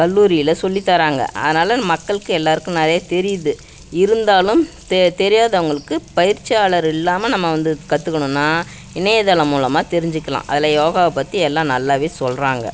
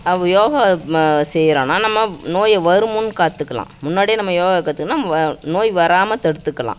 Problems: background sounds at intervals